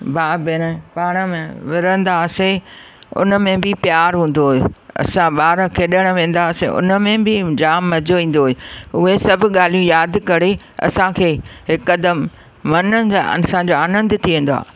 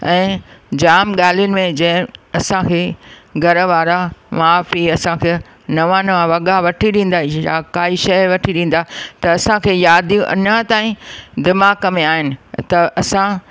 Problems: none marked